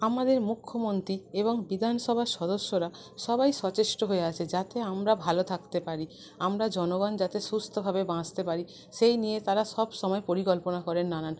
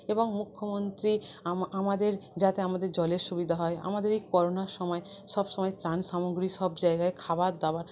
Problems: none marked